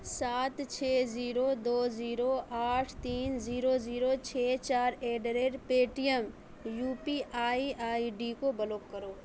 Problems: background sounds at intervals